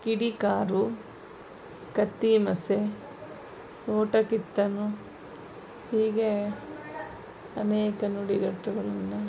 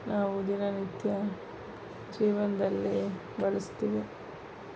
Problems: background sounds at intervals